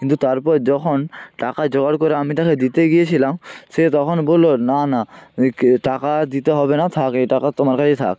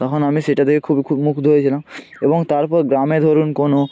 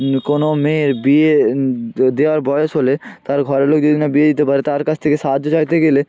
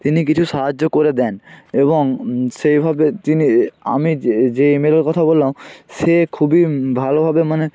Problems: constant background noise, continuous background conversations